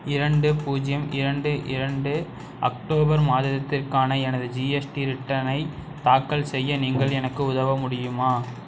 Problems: background sounds at intervals